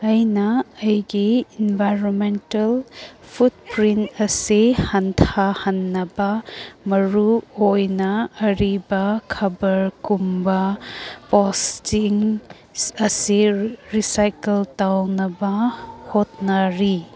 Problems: background sounds at intervals